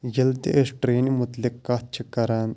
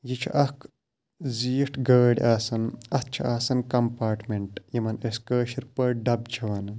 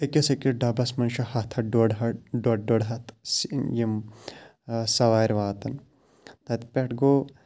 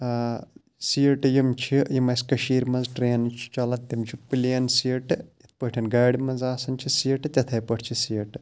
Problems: none marked